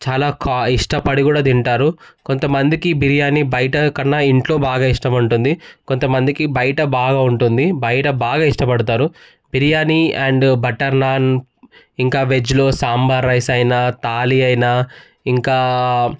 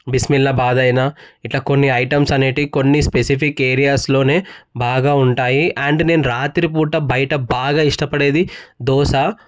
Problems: background sounds at intervals